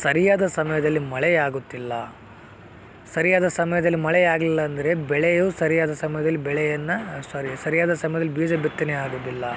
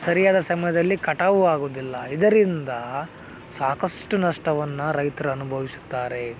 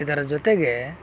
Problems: background sounds at intervals